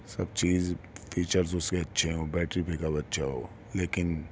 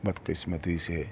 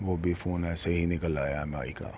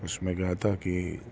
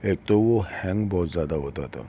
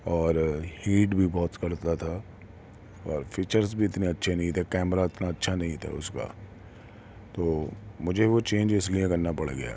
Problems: none marked